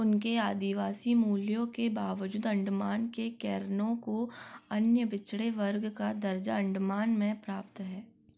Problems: none marked